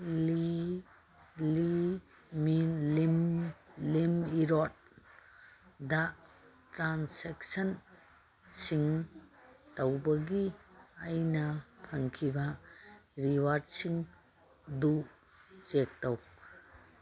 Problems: none marked